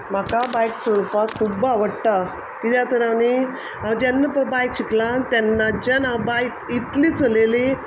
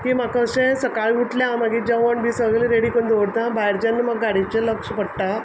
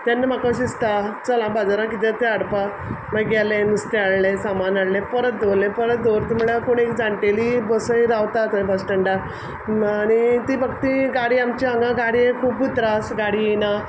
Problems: background sounds at intervals